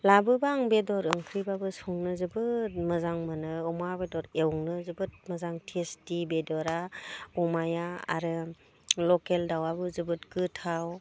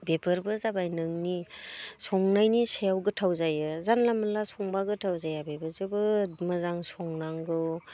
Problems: none marked